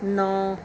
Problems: background sounds at intervals